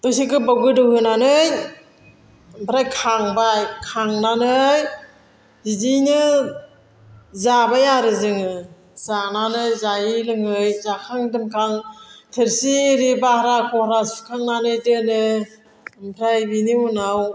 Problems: none marked